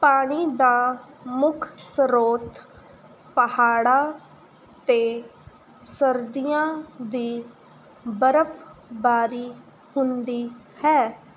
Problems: none marked